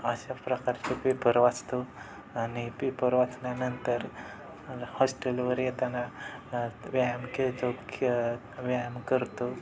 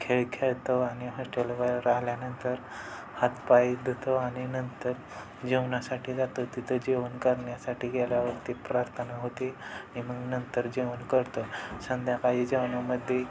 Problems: constant background noise, background conversations at intervals, low volume